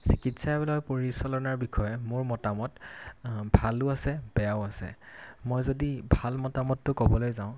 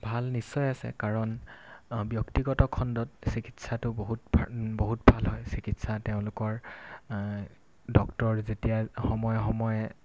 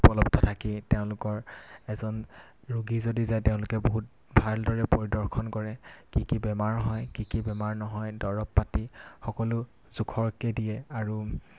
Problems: constant background noise